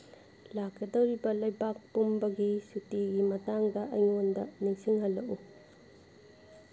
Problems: none marked